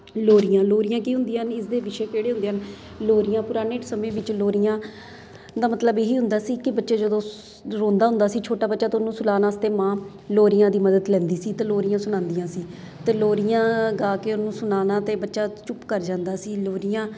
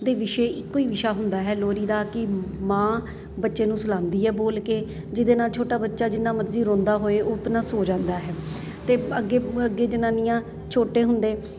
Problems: none marked